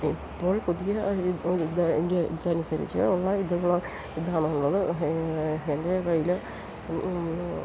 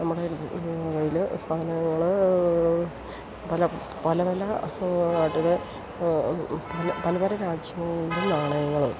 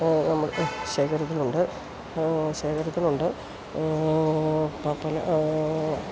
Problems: constant background noise